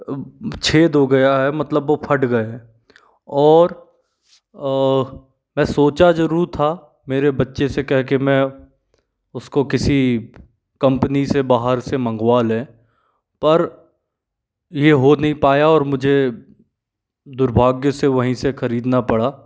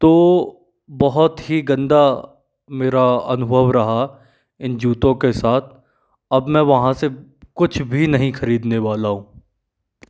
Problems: none marked